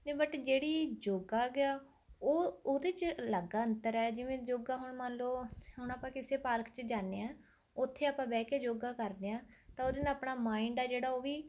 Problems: constant background noise